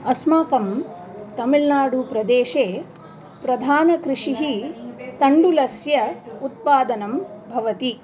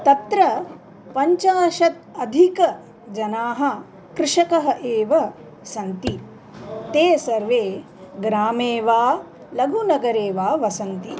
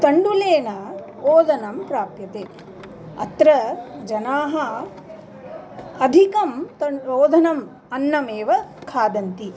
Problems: continuous background conversations